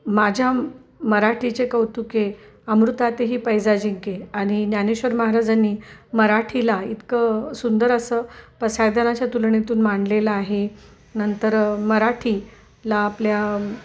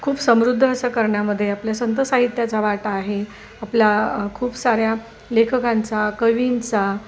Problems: none marked